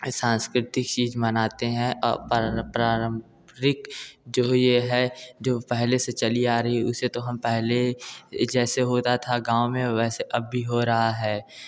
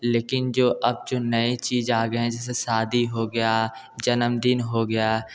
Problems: none marked